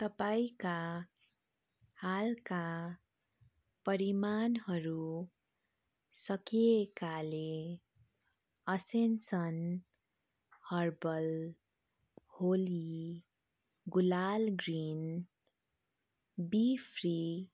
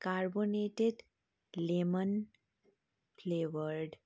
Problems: none marked